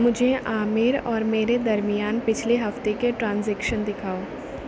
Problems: none marked